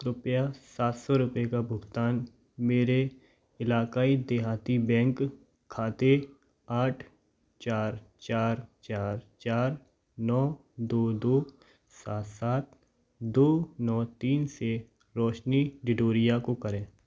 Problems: none marked